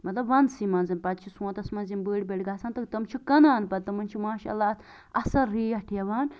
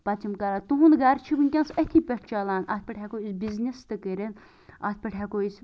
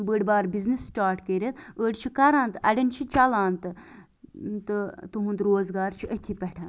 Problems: none marked